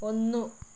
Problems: constant background noise, low volume